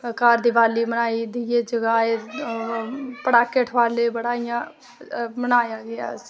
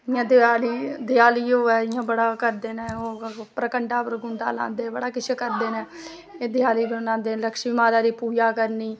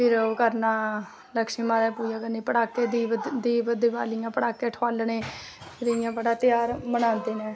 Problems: none marked